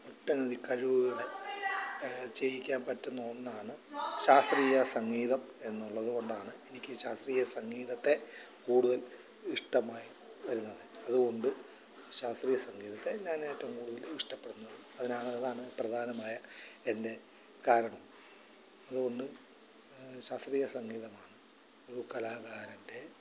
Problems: constant background noise, background conversations at intervals, low volume